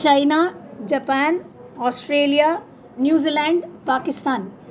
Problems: background sounds at intervals